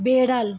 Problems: none marked